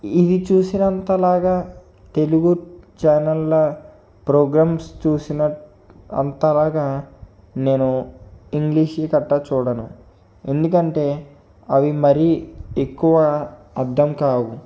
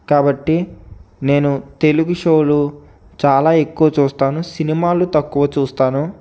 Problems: background sounds at intervals